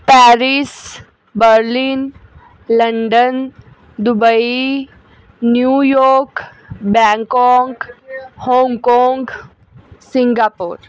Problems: none marked